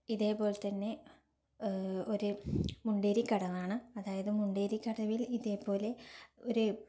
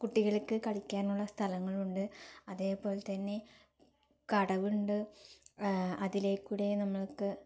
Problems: low volume